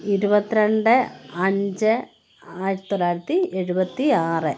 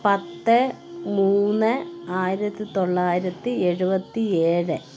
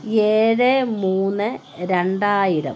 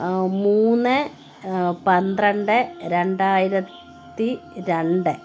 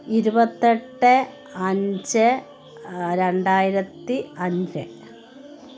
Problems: continuous background conversations